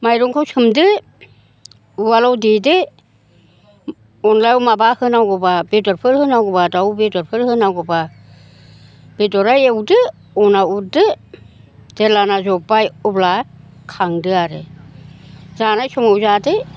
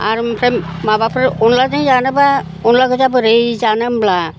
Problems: constant background noise